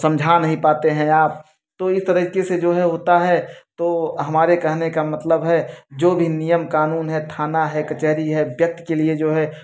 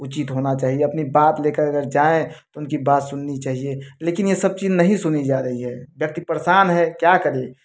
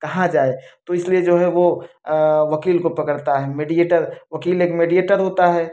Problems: none marked